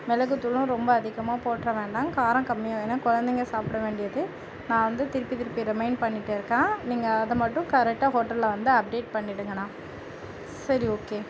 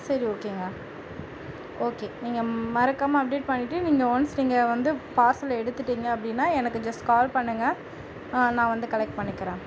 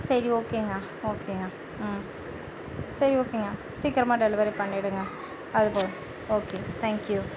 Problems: none marked